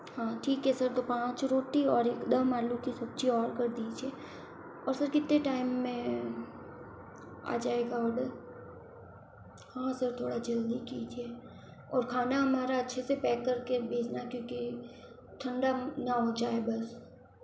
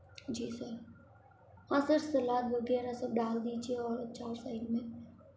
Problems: constant background noise, echo, low volume